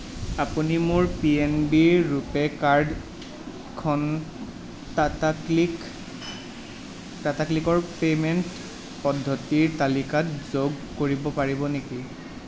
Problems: constant background noise